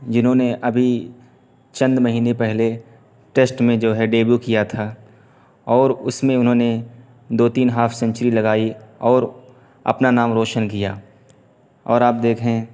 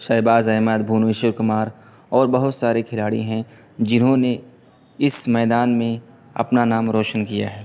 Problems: constant background noise